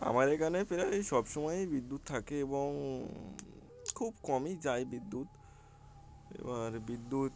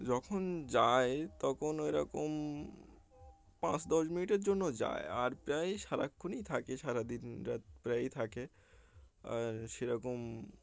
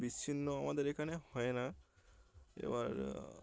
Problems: none marked